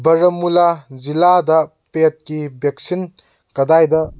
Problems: background sounds at intervals